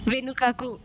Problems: constant background noise